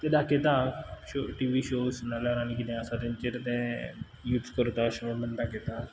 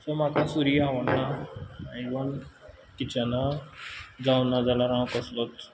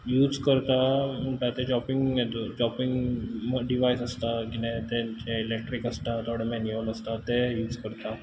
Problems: background sounds at intervals